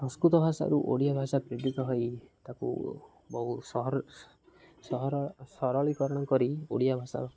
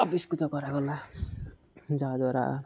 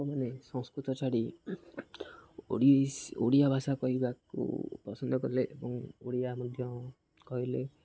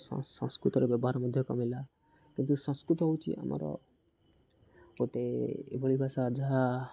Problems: none marked